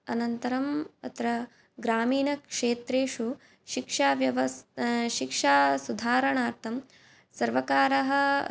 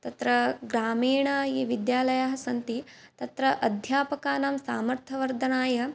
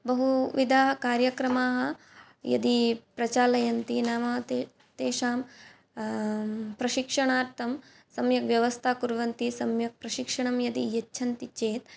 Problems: none marked